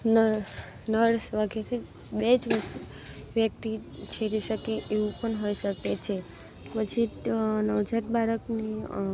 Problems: background sounds at intervals, low volume